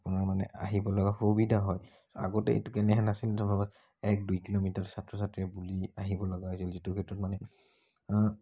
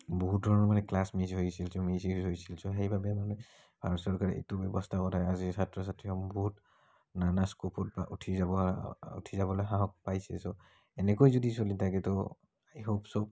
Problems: none marked